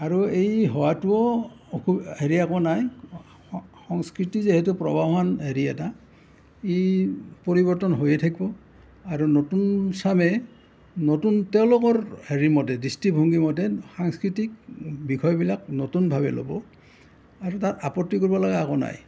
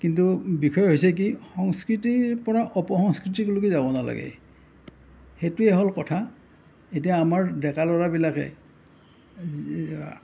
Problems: none marked